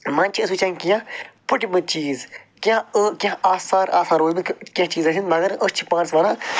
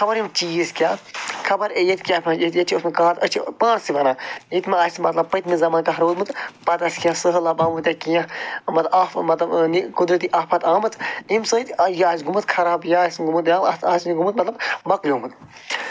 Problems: none marked